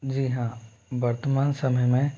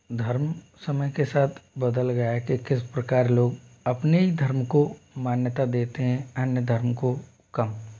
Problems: constant background noise